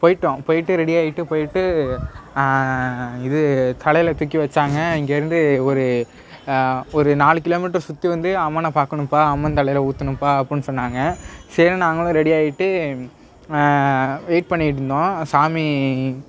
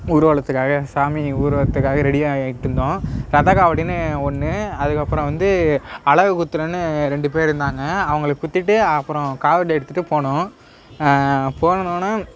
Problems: none marked